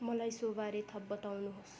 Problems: constant background noise